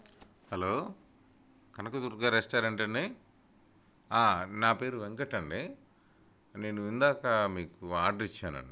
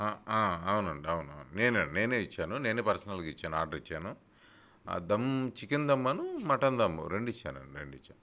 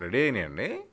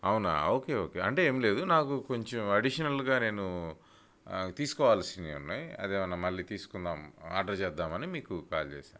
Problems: none marked